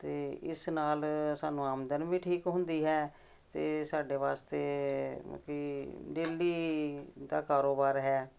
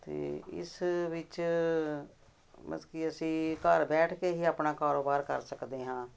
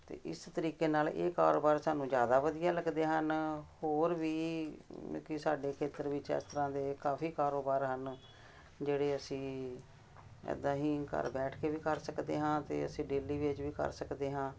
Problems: none marked